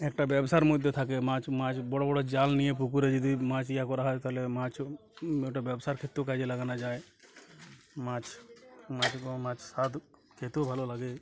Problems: constant background noise, continuous background conversations